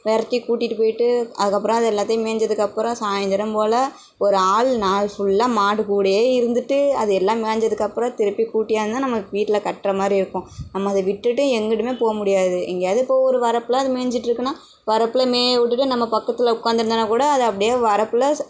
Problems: none marked